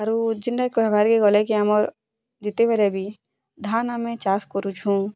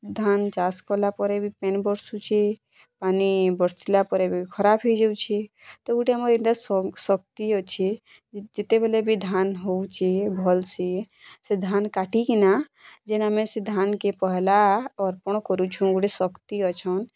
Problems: constant background noise